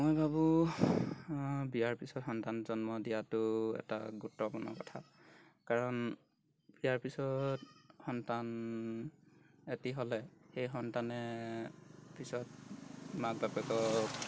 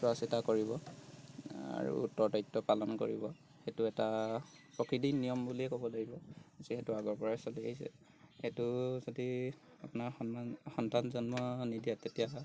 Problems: background sounds at intervals